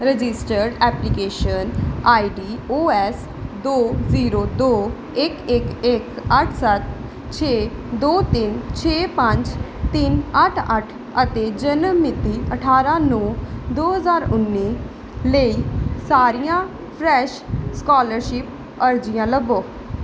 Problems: none marked